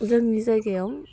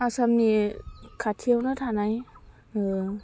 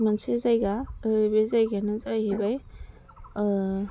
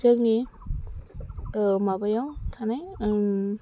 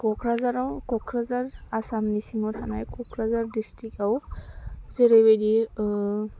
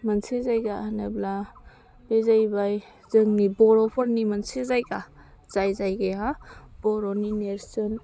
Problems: constant background noise